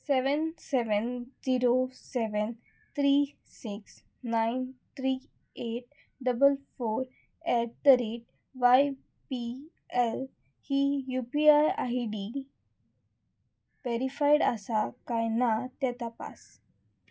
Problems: none marked